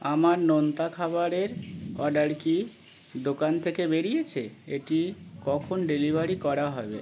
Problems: background sounds at intervals